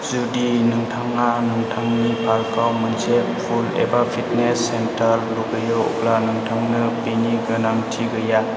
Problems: constant background noise